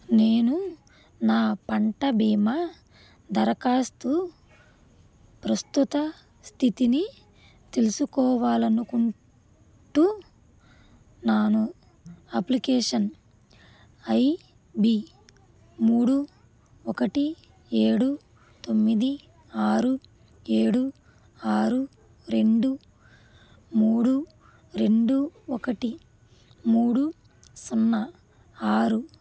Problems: constant background noise